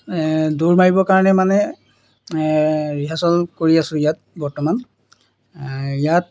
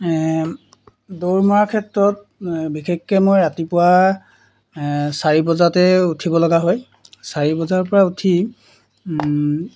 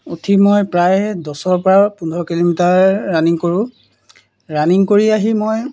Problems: none marked